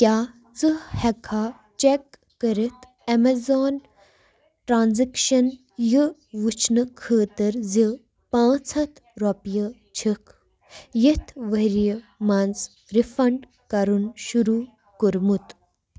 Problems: background sounds at intervals